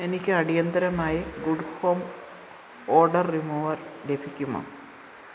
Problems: none marked